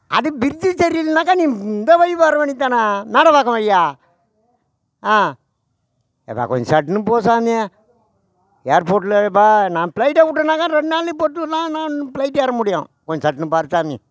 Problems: none marked